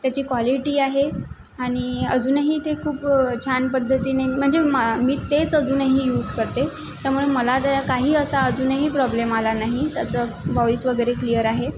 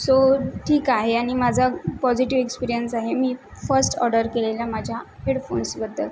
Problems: constant background noise